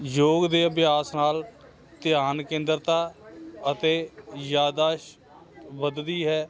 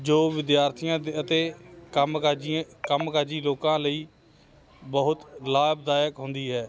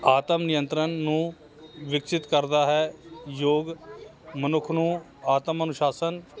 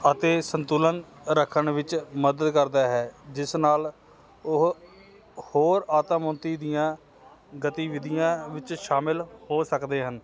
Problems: constant background noise